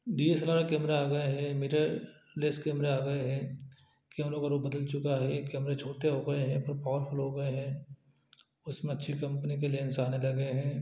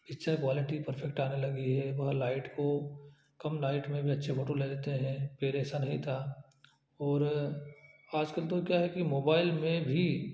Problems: low volume